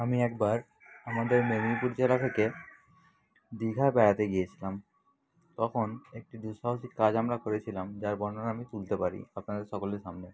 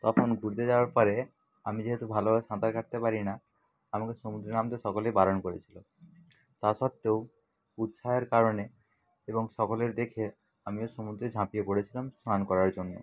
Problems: none marked